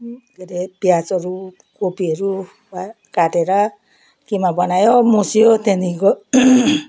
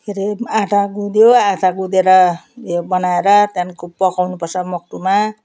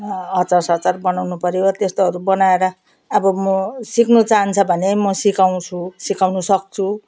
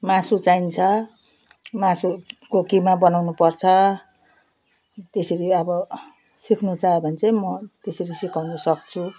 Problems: none marked